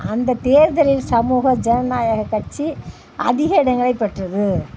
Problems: constant background noise